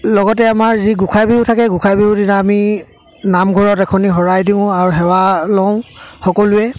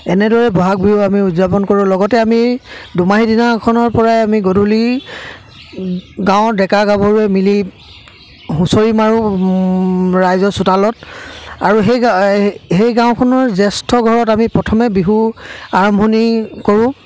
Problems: constant background noise, background conversations at intervals